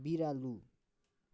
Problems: continuous background conversations